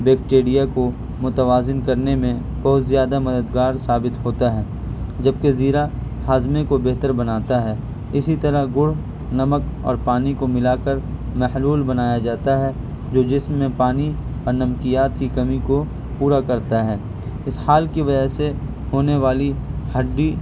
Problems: constant background noise